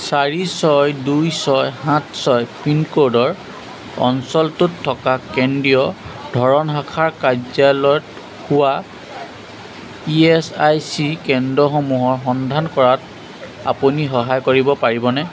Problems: constant background noise